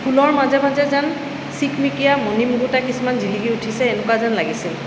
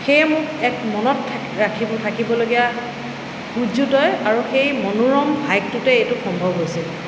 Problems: constant background noise